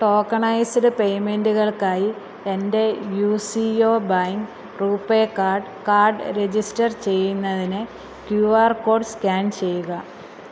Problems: constant background noise